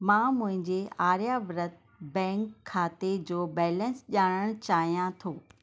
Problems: constant background noise